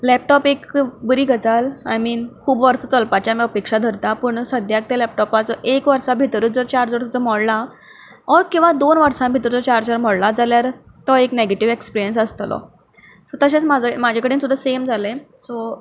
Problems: none marked